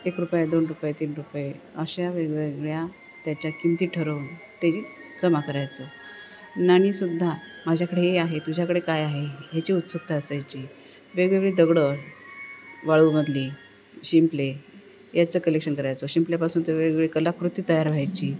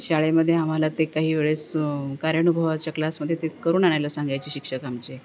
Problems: none marked